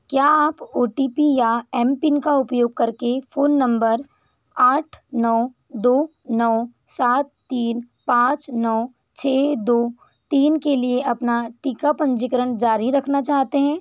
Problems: none marked